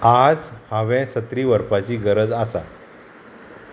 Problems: none marked